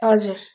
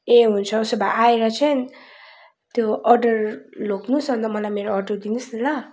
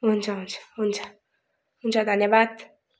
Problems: background sounds at intervals